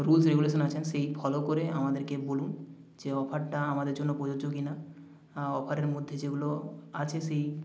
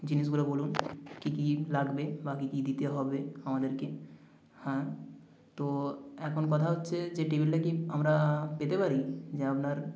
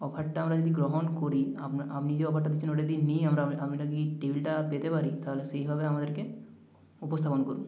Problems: echo